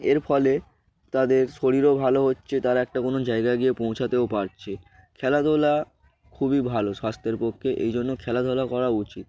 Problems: none marked